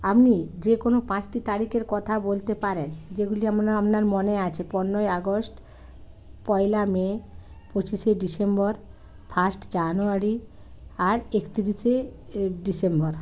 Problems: none marked